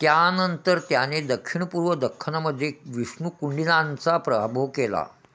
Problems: constant background noise